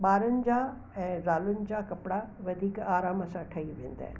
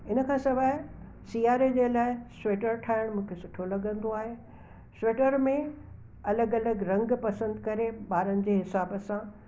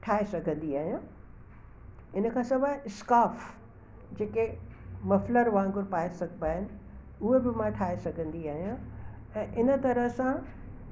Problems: constant background noise